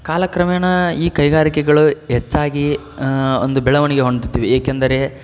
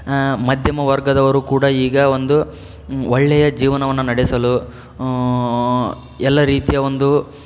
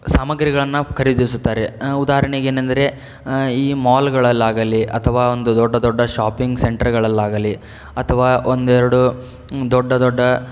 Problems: none marked